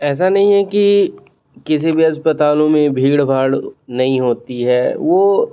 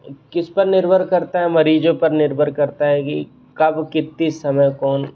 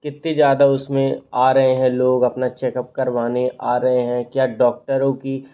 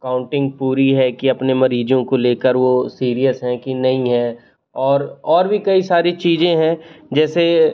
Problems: constant background noise